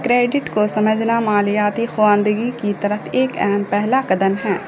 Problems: constant background noise